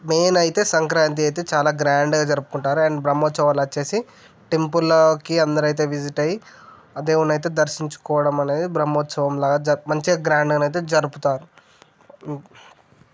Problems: none marked